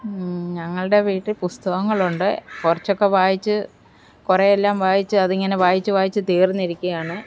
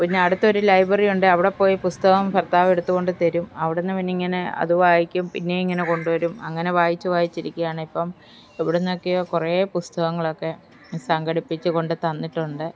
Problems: background conversations at intervals